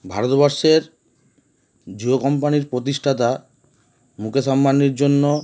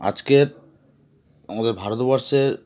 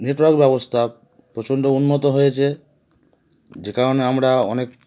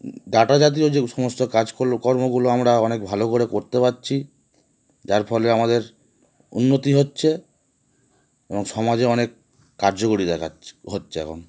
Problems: background sounds at intervals